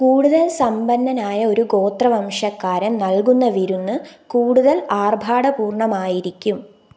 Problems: none marked